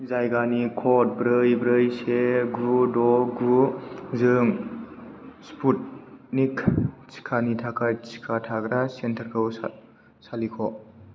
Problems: constant background noise